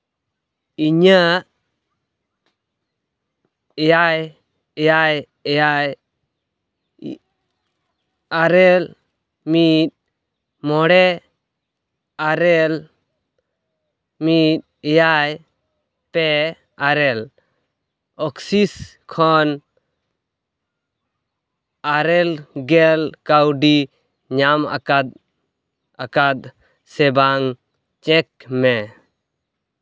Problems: background sounds at intervals